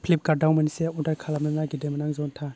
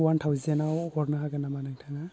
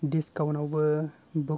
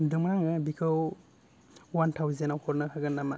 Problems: none marked